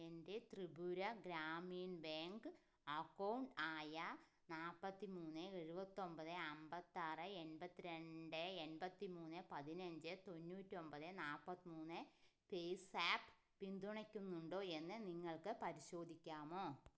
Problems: low volume